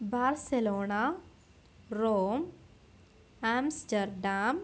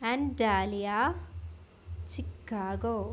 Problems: background sounds at intervals